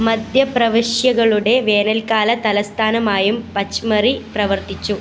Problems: constant background noise